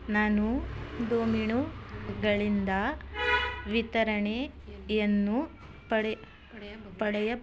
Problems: background conversations at intervals